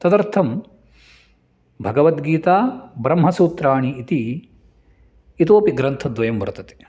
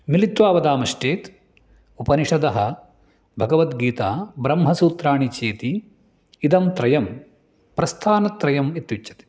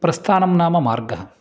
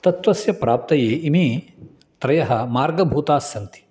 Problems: none marked